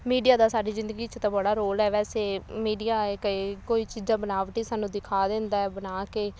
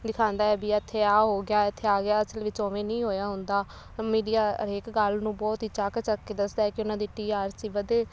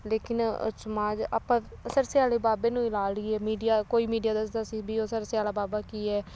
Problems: none marked